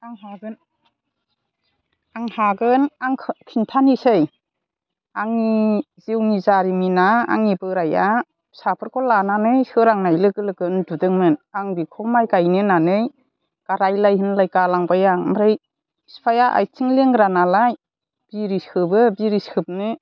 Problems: constant background noise